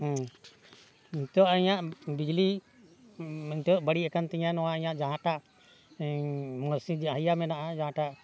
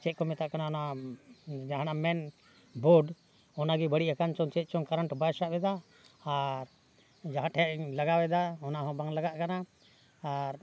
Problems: background sounds at intervals